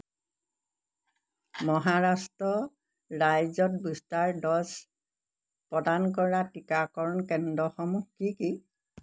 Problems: background sounds at intervals